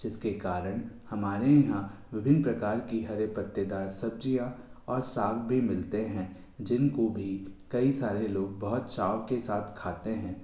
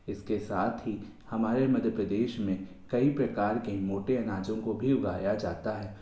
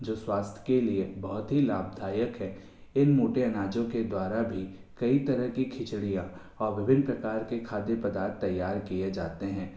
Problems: constant background noise, echo